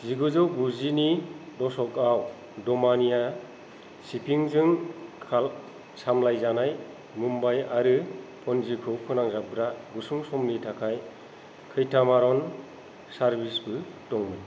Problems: none marked